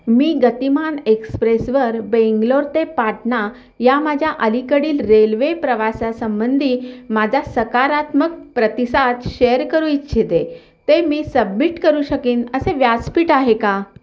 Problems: none marked